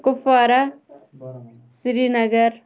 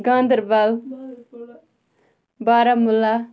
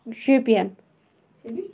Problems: background sounds at intervals, continuous background conversations